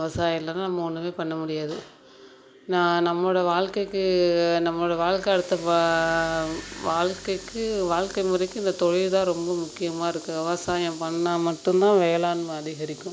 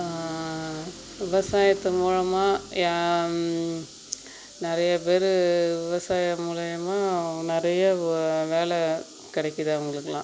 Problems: background sounds at intervals